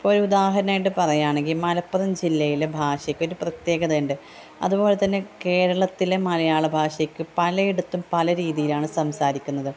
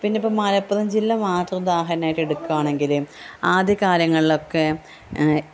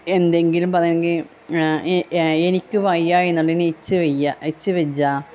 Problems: constant background noise, background conversations at intervals, low volume